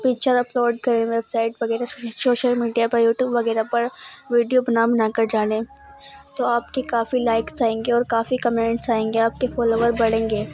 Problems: constant background noise